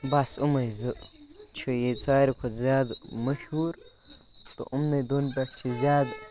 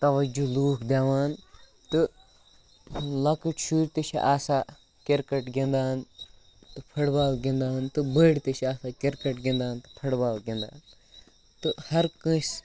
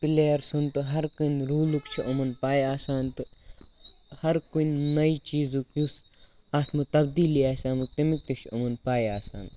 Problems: background sounds at intervals